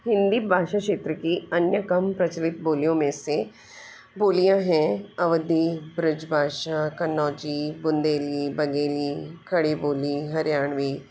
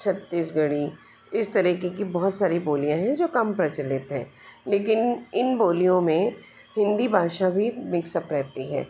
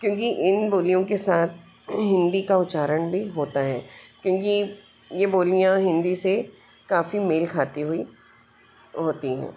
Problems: constant background noise